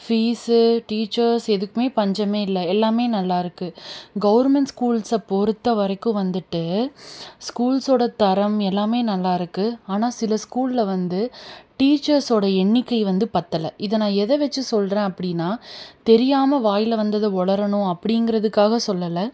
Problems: none marked